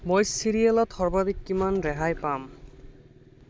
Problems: constant background noise